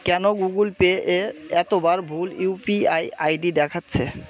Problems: constant background noise